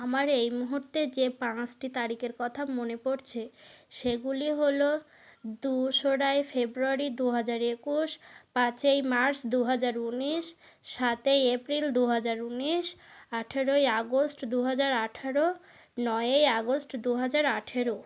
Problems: constant background noise